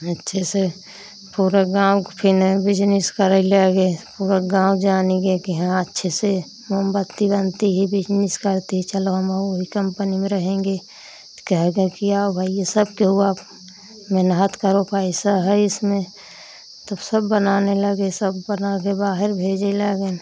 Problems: none marked